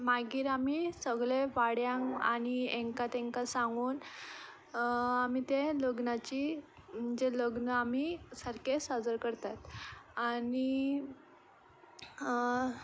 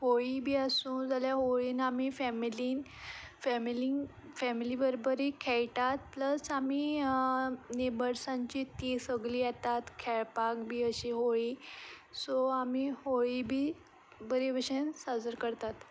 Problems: none marked